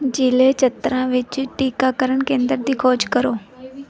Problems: background sounds at intervals, background conversations at intervals